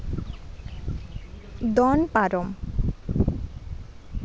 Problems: none marked